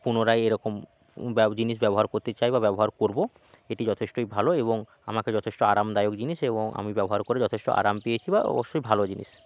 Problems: background sounds at intervals